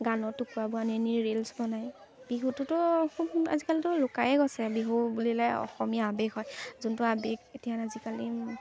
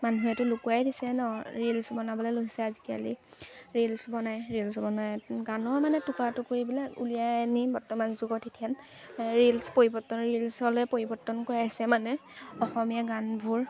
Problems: constant background noise, background conversations at intervals